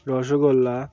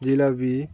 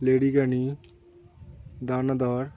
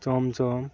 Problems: constant background noise